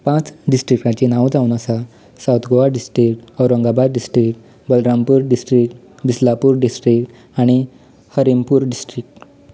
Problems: background sounds at intervals